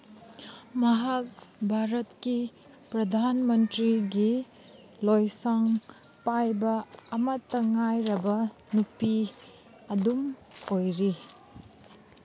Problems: none marked